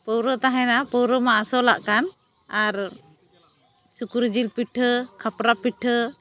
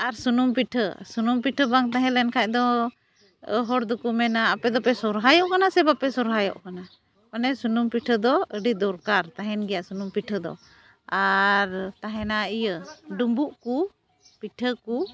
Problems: none marked